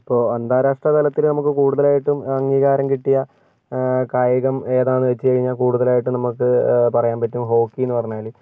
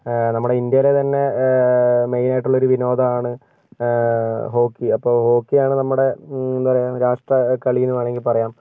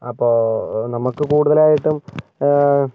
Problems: none marked